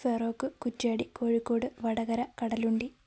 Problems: none marked